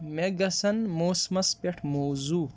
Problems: none marked